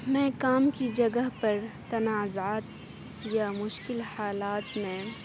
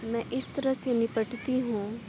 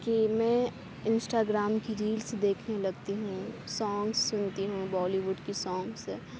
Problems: constant background noise, background conversations at intervals